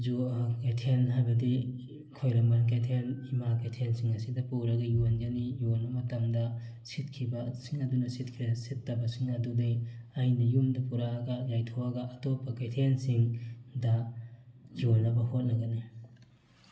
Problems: background sounds at intervals